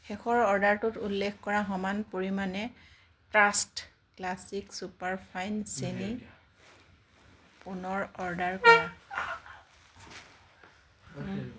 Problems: background sounds at intervals, background conversations at intervals